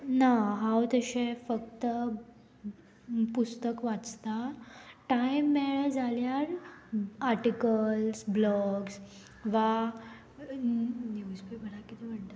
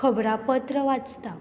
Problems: background sounds at intervals